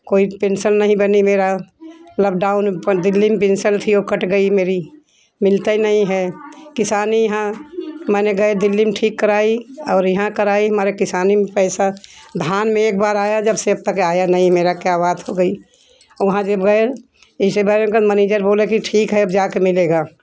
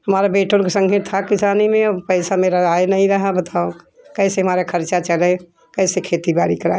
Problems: constant background noise, continuous background conversations